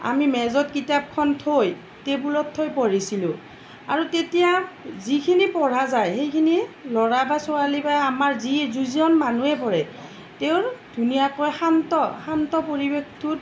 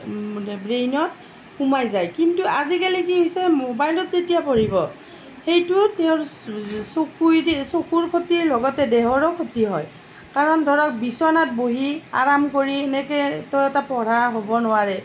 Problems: none marked